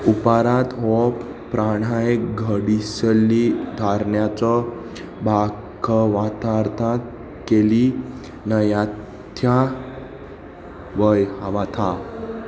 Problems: constant background noise, background conversations at intervals